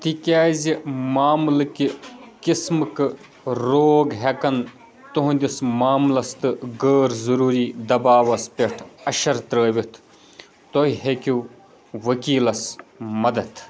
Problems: background sounds at intervals, background conversations at intervals